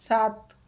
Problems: none marked